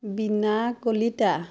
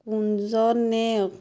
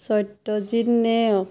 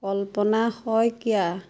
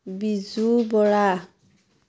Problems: constant background noise